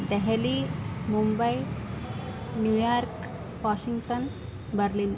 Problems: constant background noise